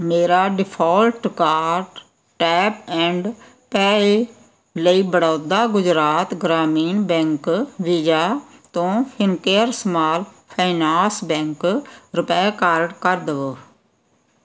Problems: background sounds at intervals